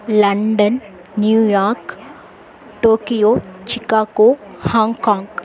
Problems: constant background noise